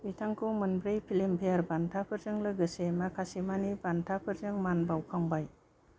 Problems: low volume